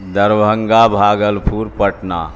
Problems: constant background noise